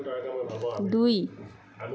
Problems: continuous background conversations